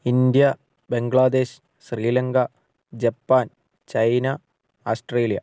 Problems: none marked